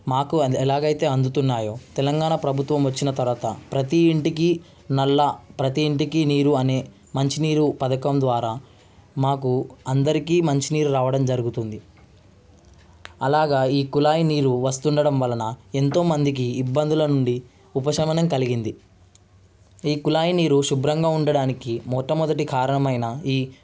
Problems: constant background noise